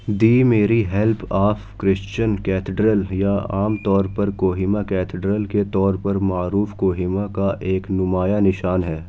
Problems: background sounds at intervals